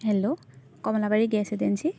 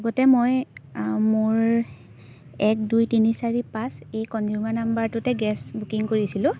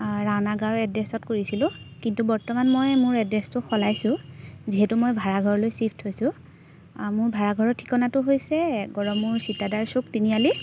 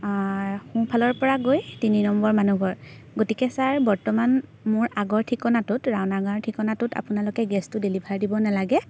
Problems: background sounds at intervals